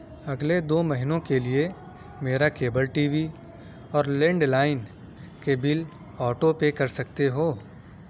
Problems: none marked